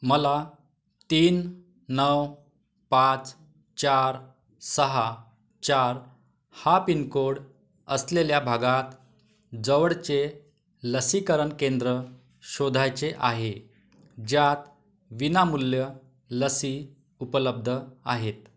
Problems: none marked